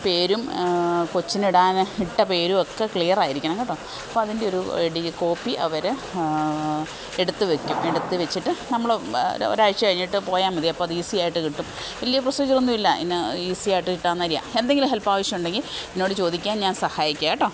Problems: none marked